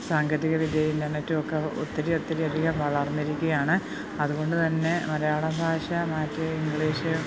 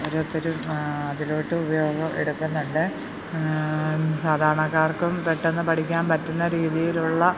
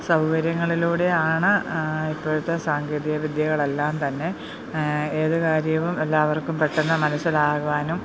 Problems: background sounds at intervals